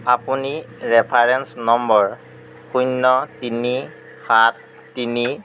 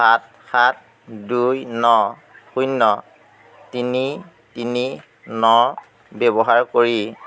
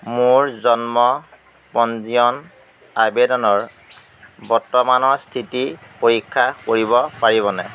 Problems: constant background noise, background conversations at intervals